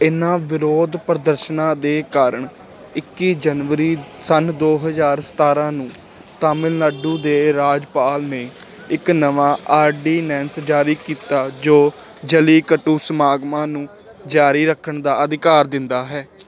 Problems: constant background noise